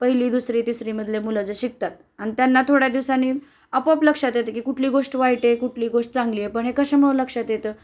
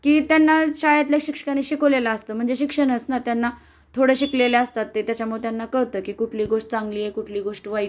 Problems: constant background noise